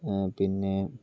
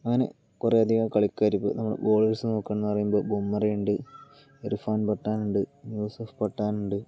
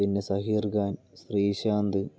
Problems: low volume